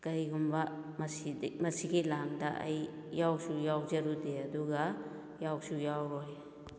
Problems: echo